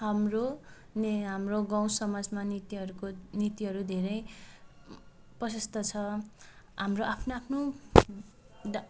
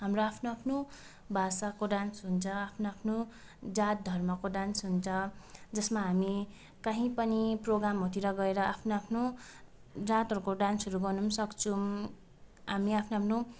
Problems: constant background noise, background conversations at intervals